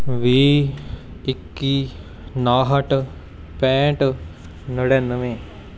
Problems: constant background noise, background conversations at intervals